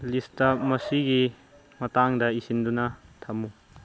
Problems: low volume